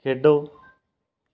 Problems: none marked